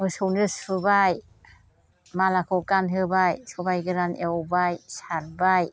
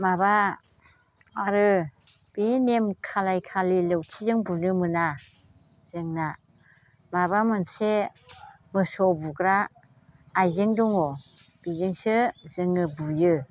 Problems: constant background noise